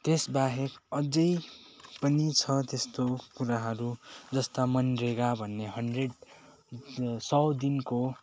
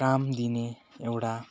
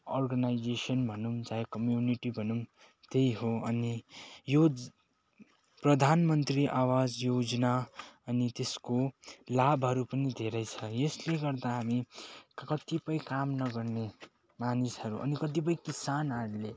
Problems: constant background noise